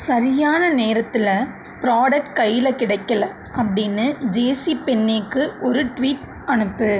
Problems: constant background noise